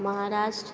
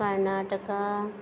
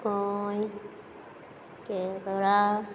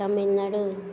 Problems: none marked